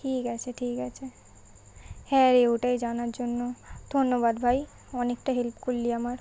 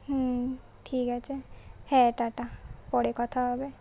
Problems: none marked